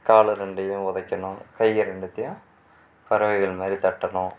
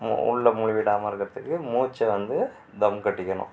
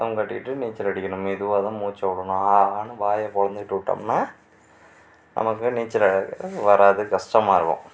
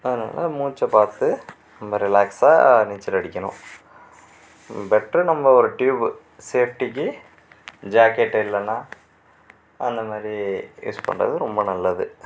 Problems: background sounds at intervals